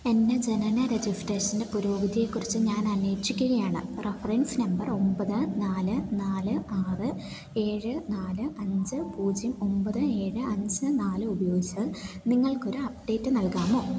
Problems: constant background noise